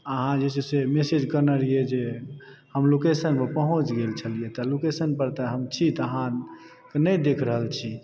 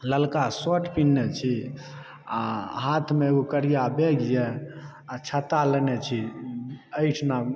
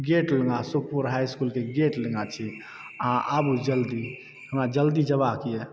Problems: background sounds at intervals